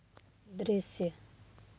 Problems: background sounds at intervals